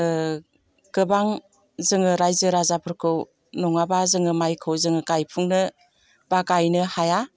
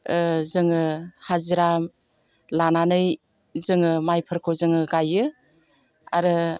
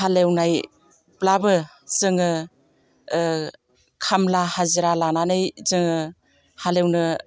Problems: constant background noise